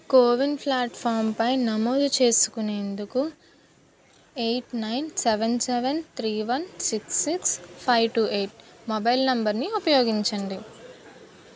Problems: background conversations at intervals